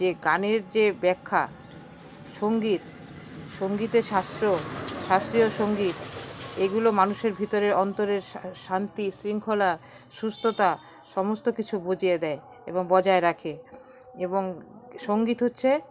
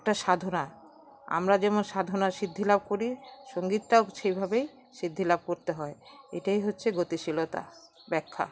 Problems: constant background noise